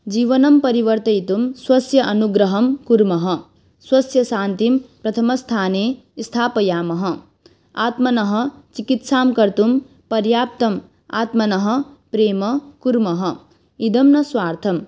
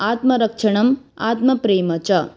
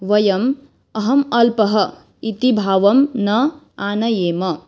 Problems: background sounds at intervals